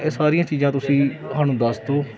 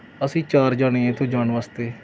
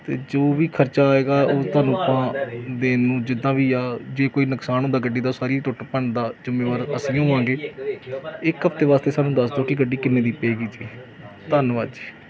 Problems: none marked